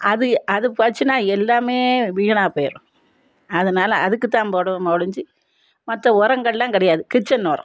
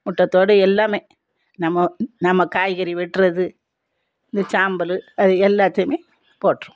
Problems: none marked